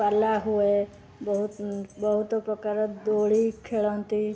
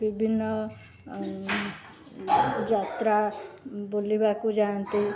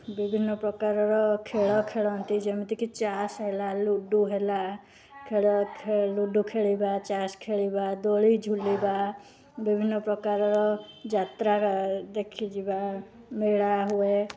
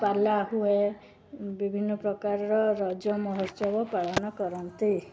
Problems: constant background noise, continuous background conversations